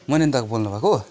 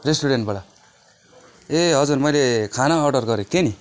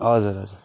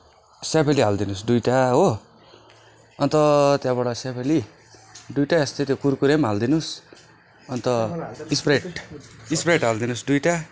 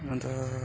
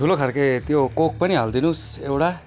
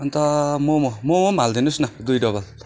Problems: constant background noise